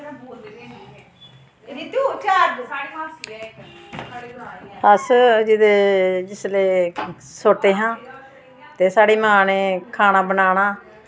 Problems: constant background noise